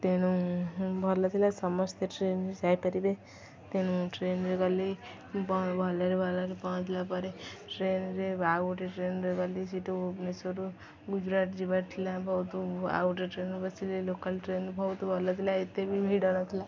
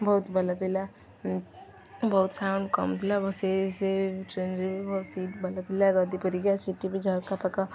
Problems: none marked